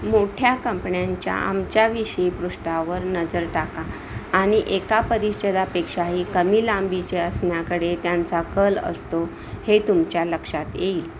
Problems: constant background noise